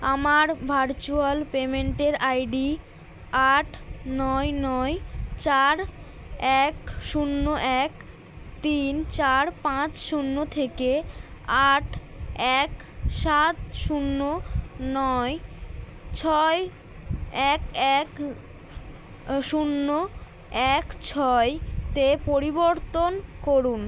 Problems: none marked